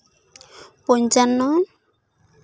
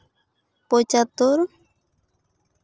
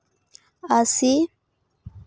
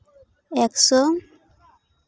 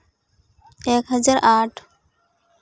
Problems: background sounds at intervals